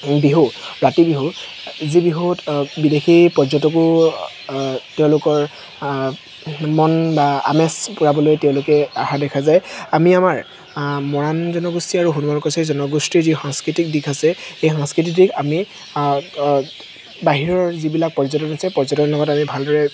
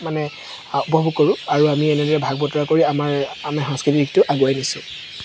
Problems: constant background noise